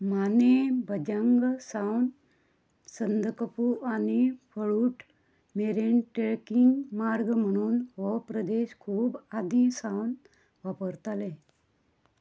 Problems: none marked